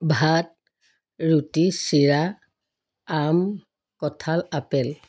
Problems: none marked